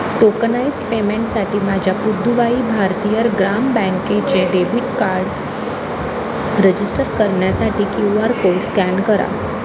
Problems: constant background noise